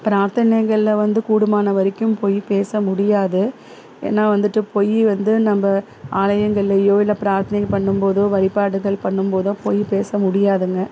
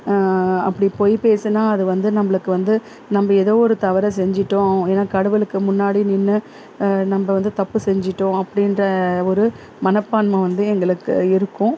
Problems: constant background noise